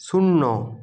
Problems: constant background noise